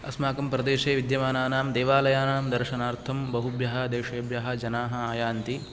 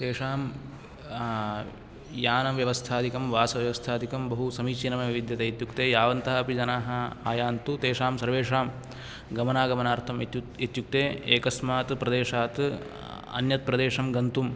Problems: none marked